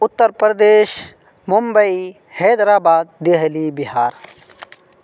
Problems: none marked